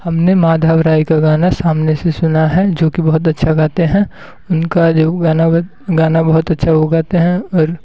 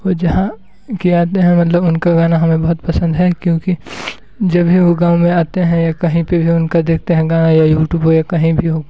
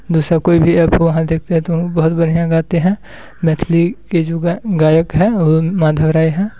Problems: constant background noise